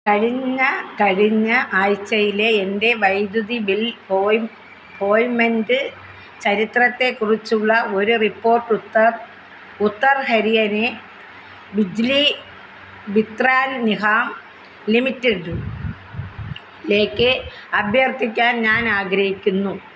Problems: none marked